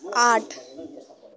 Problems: constant background noise